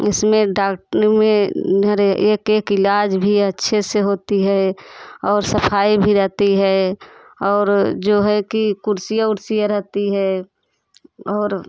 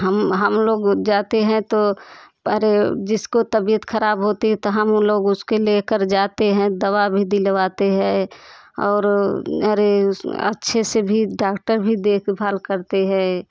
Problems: constant background noise, background conversations at intervals